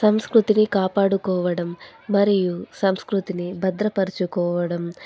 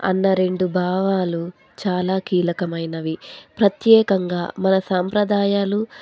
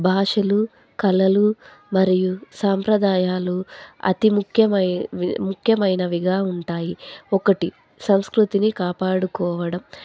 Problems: constant background noise